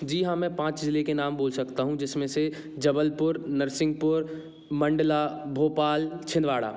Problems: background sounds at intervals